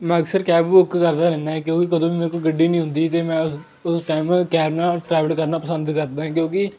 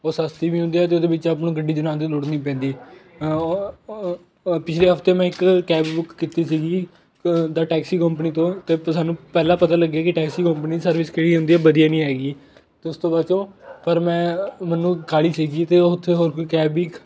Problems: constant background noise, continuous background conversations